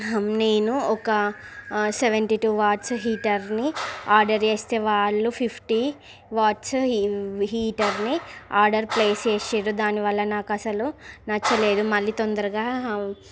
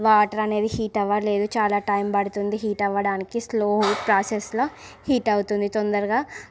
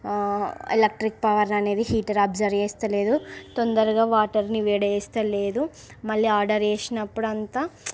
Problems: constant background noise, background conversations at intervals